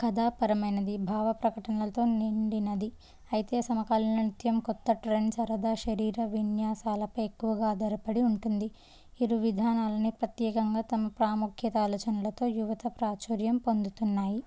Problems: none marked